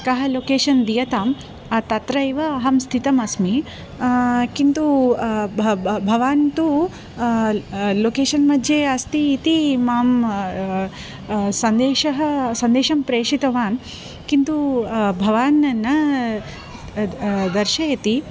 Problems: background conversations at intervals